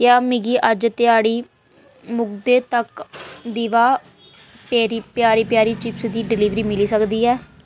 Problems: none marked